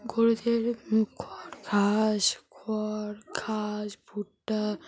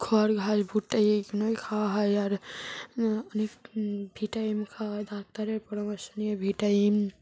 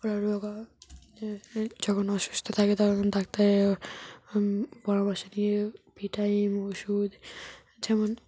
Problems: constant background noise, background conversations at intervals